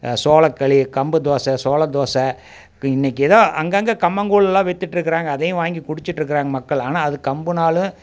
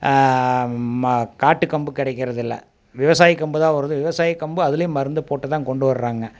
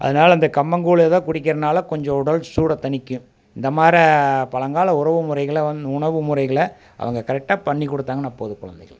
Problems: none marked